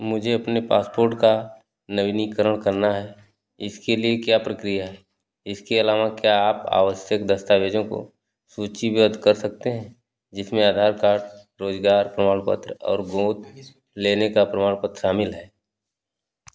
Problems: none marked